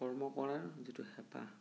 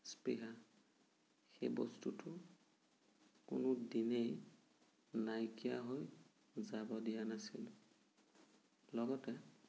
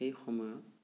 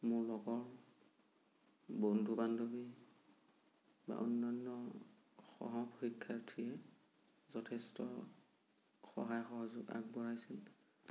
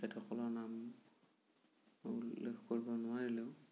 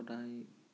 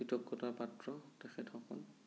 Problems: low volume